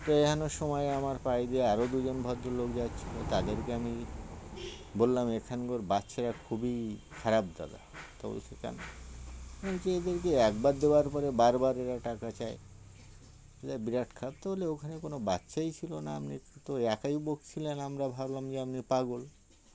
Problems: constant background noise, background conversations at intervals